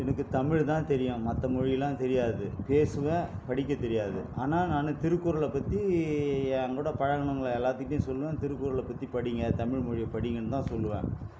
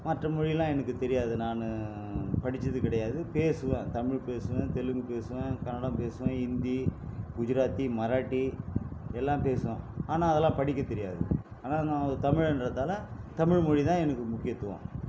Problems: constant background noise